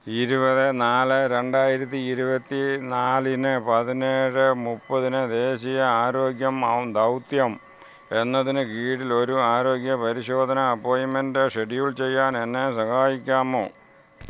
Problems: none marked